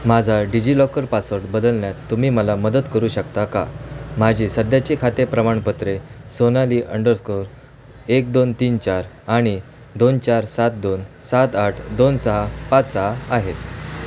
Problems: constant background noise